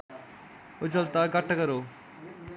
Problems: background sounds at intervals